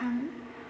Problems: none marked